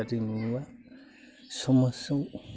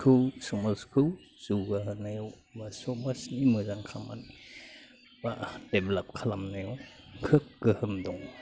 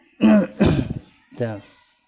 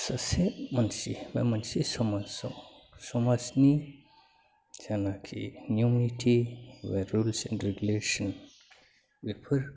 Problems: none marked